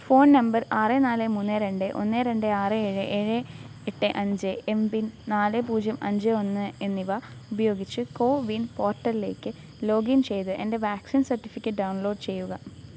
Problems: constant background noise